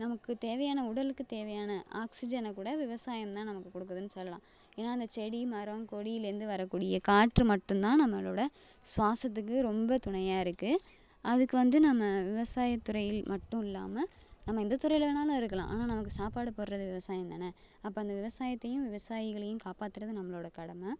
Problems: low volume